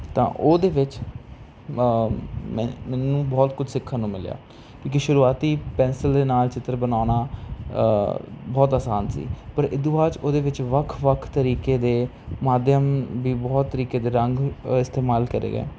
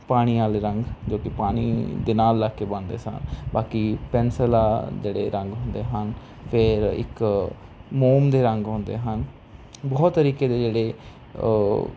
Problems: constant background noise